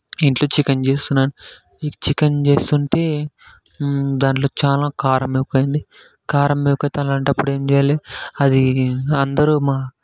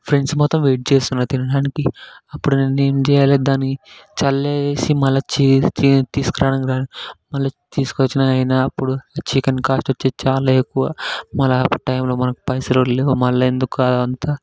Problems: none marked